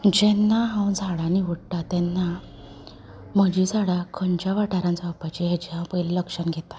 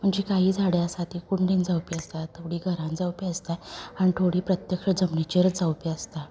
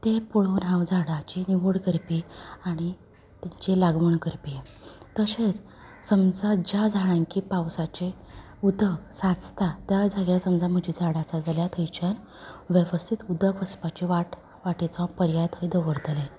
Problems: background conversations at intervals